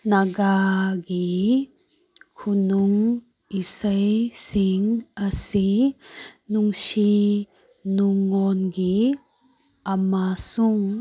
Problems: background sounds at intervals